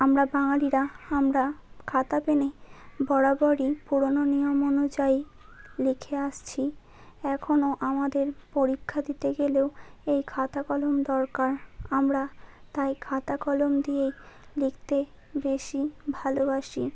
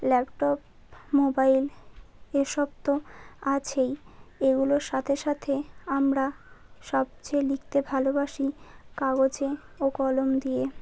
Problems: none marked